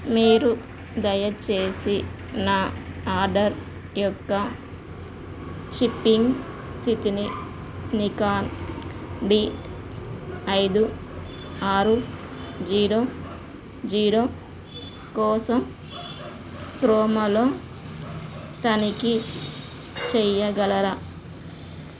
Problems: constant background noise